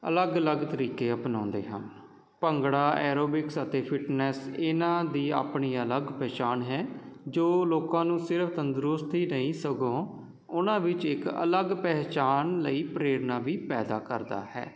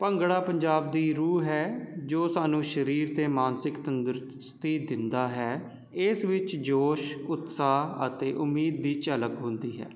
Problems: none marked